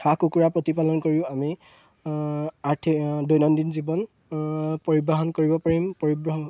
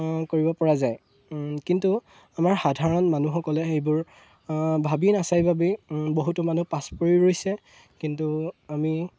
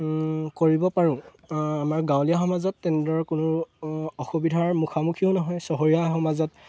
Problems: none marked